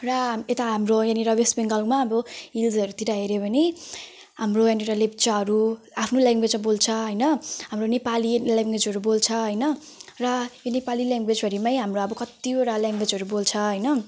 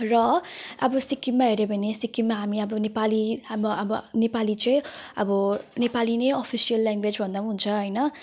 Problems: background sounds at intervals